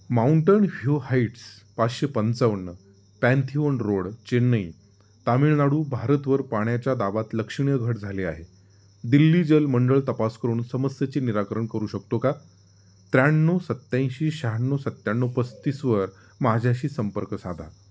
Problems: none marked